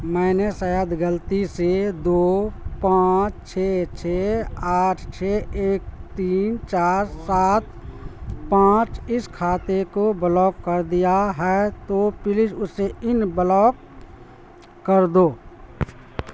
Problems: constant background noise